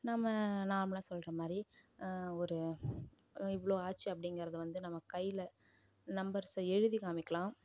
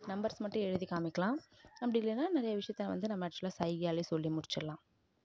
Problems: low volume